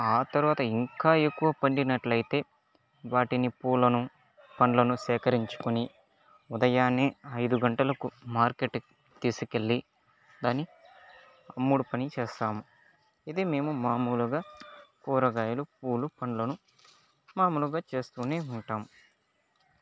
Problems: background sounds at intervals, low volume